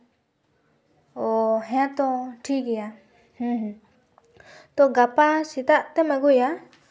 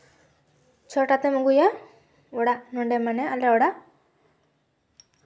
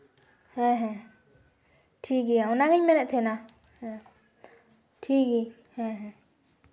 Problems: constant background noise